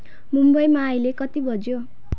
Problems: background sounds at intervals